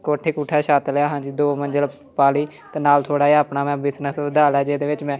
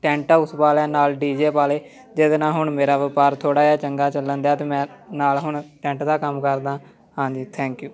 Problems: background conversations at intervals